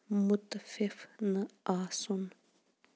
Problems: background sounds at intervals